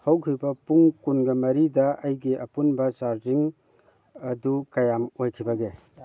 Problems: background conversations at intervals